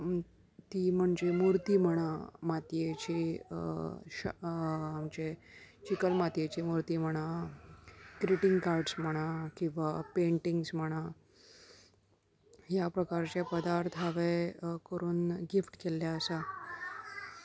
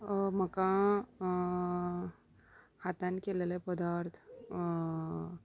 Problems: background sounds at intervals, continuous background conversations